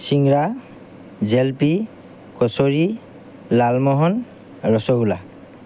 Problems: none marked